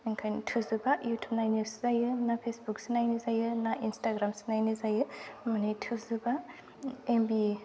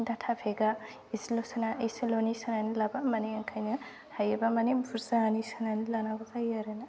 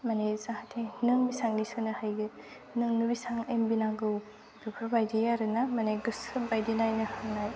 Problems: constant background noise